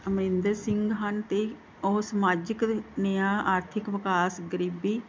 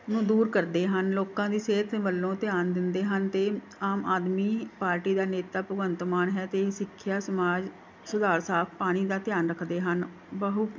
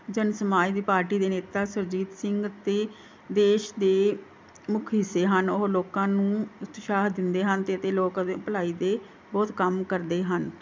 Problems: background sounds at intervals